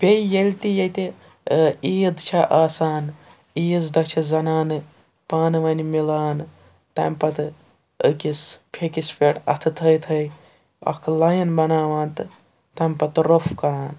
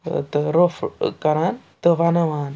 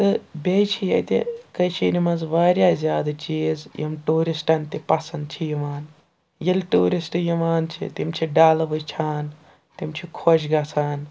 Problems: background sounds at intervals